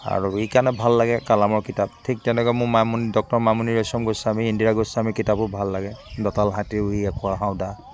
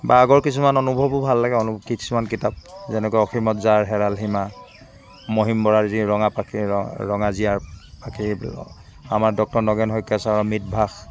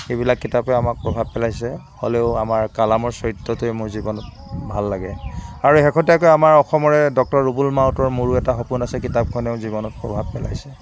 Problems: constant background noise